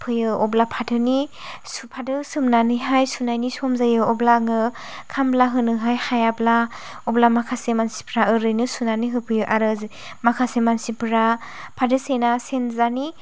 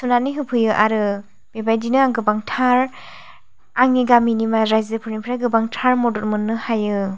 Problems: low volume